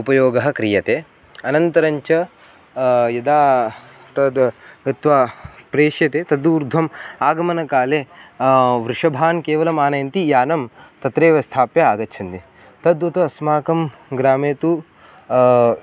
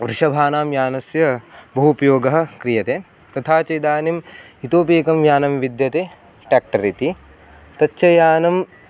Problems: constant background noise